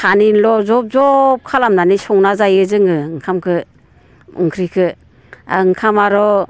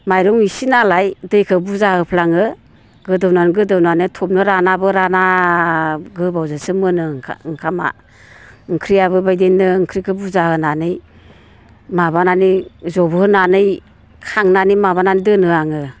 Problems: constant background noise